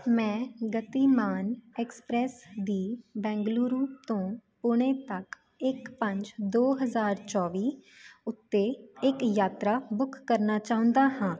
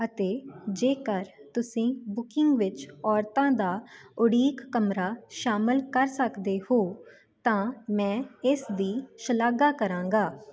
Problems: background conversations at intervals